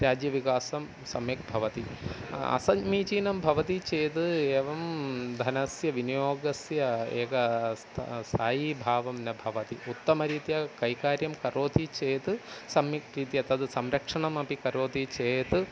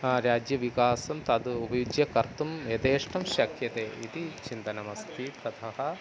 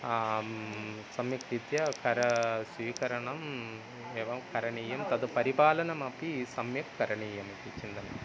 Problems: constant background noise